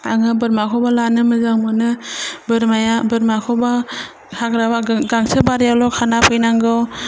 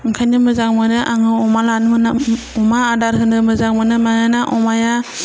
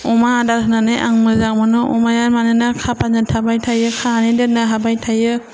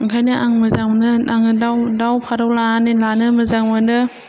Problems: none marked